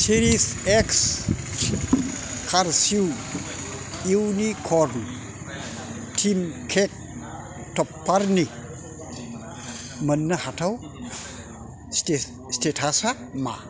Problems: constant background noise